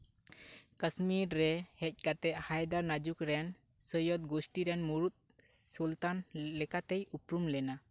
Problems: none marked